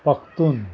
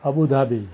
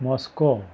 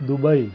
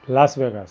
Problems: background conversations at intervals